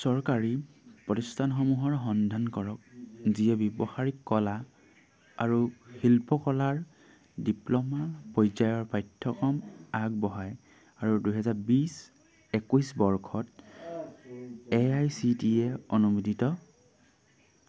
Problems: constant background noise